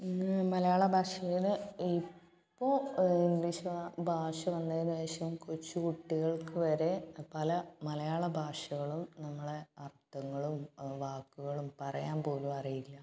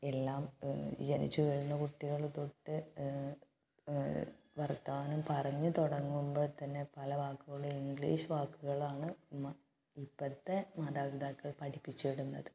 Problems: background sounds at intervals, low volume